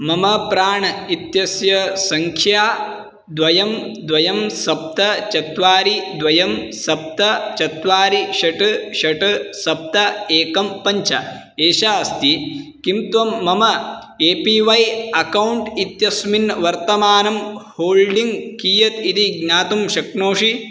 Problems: echo